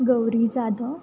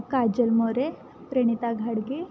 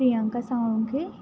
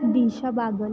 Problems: constant background noise, background conversations at intervals